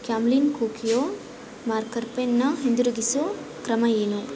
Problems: none marked